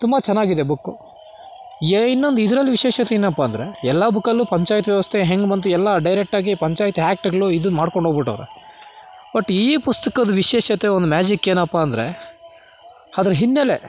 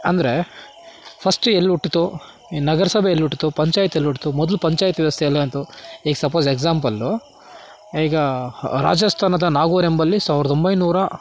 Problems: background sounds at intervals